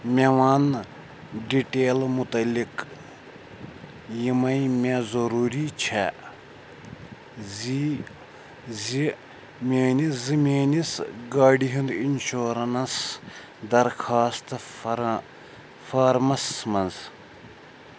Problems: background sounds at intervals